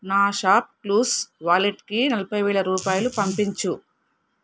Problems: background sounds at intervals